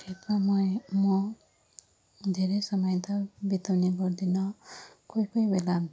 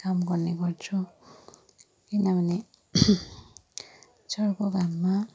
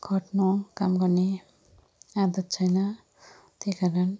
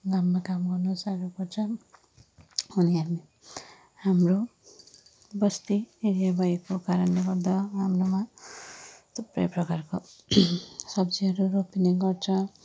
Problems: low volume